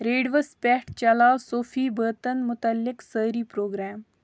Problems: none marked